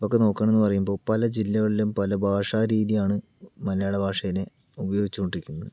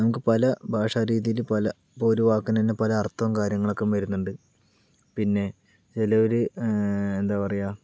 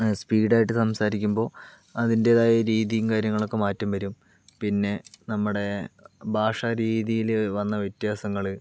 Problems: background sounds at intervals, low volume